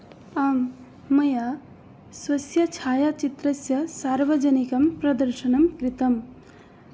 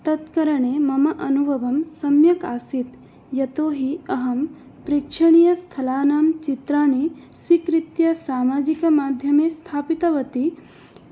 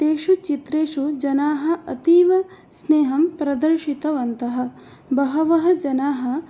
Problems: none marked